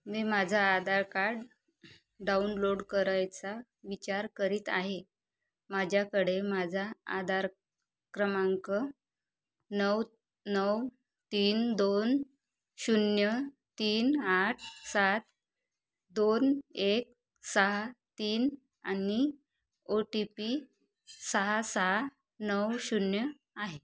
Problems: background sounds at intervals, low volume